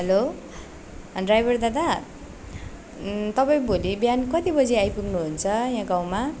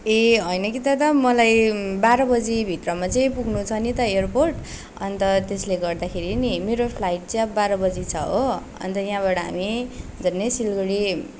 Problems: none marked